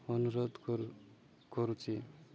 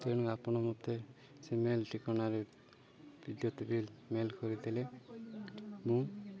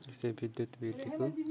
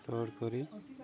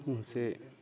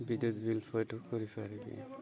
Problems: none marked